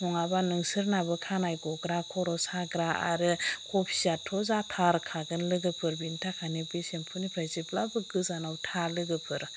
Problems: constant background noise